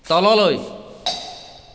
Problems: background sounds at intervals, echo